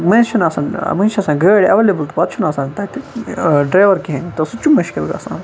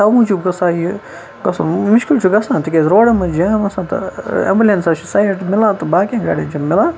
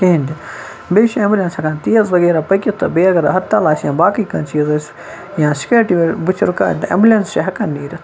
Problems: constant background noise